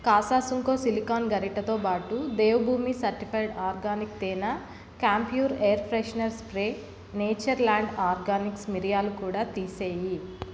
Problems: constant background noise